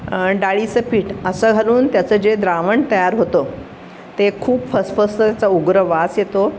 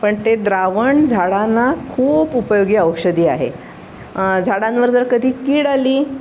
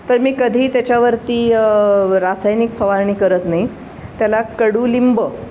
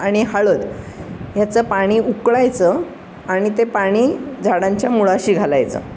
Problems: none marked